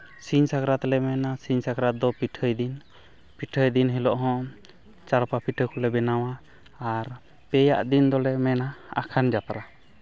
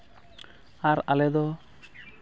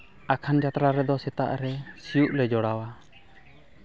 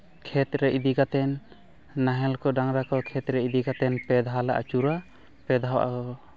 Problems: none marked